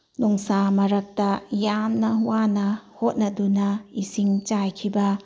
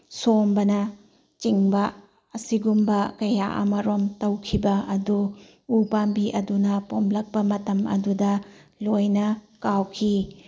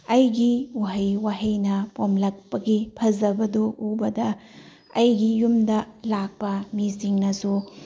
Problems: none marked